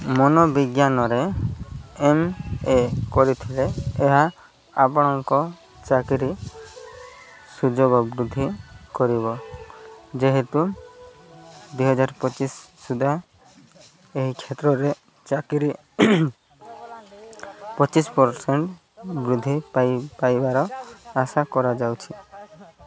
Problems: constant background noise, continuous background conversations